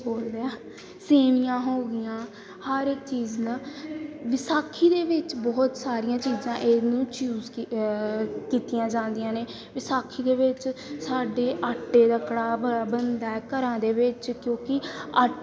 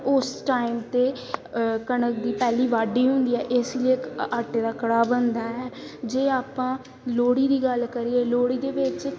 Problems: background sounds at intervals, background conversations at intervals